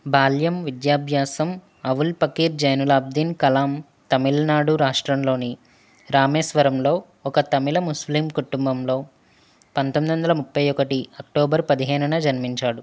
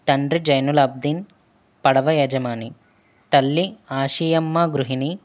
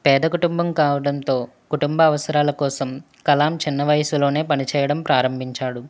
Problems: none marked